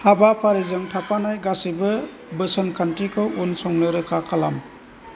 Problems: none marked